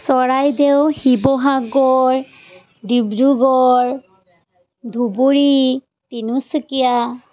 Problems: none marked